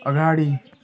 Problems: background sounds at intervals